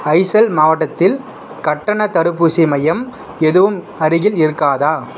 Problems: background sounds at intervals